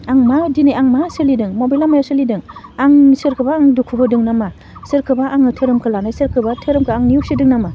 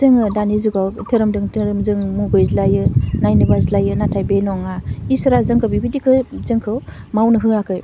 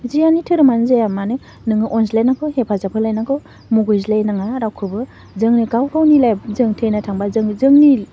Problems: none marked